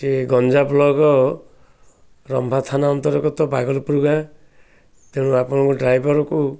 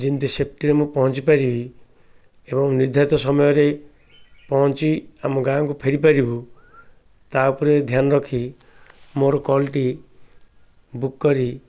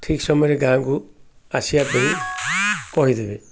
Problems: none marked